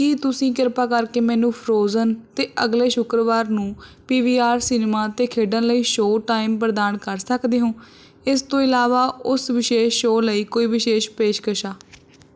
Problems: none marked